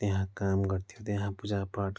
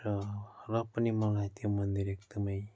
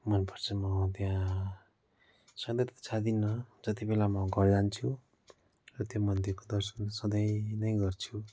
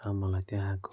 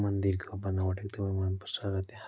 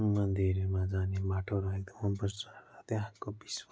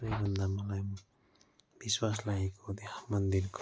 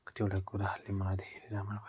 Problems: constant background noise